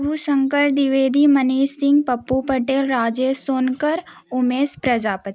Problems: none marked